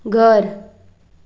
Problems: background sounds at intervals